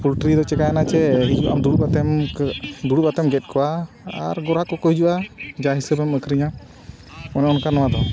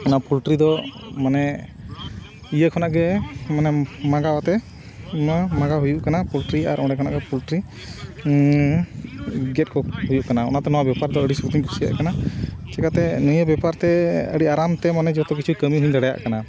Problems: constant background noise